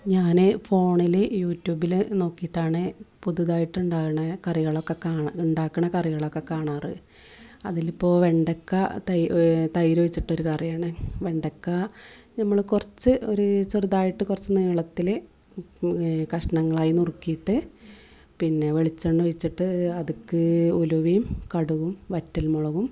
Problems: none marked